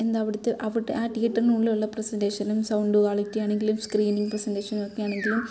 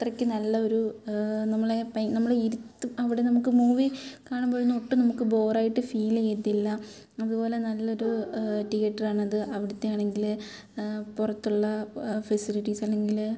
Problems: background sounds at intervals